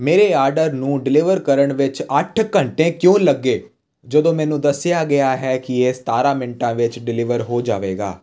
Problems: constant background noise